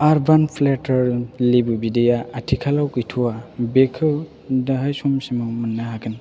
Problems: constant background noise